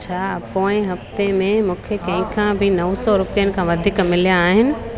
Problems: constant background noise